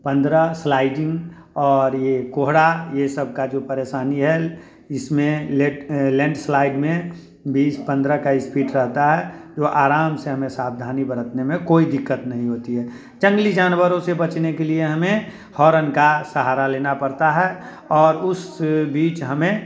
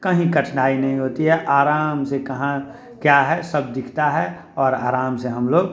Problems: constant background noise, continuous background conversations